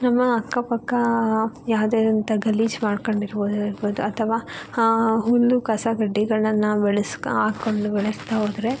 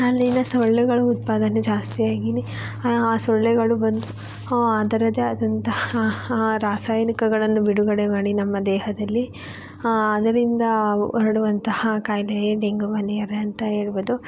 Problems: background sounds at intervals